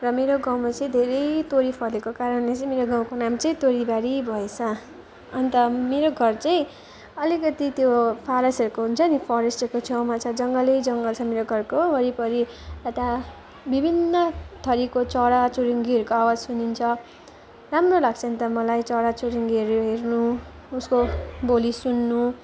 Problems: none marked